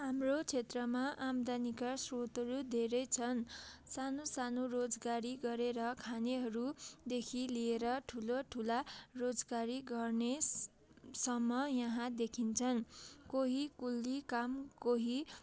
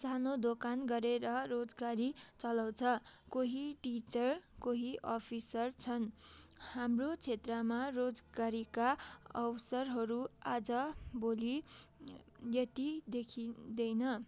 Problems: none marked